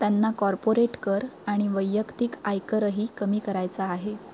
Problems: constant background noise